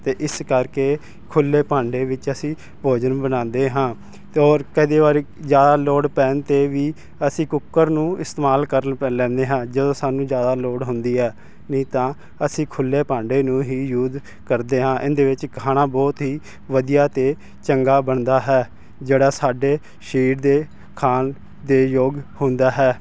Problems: constant background noise